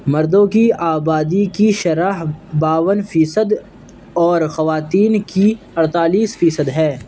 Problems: background sounds at intervals